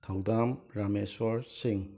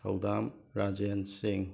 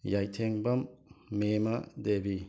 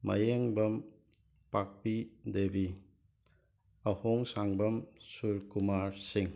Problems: background sounds at intervals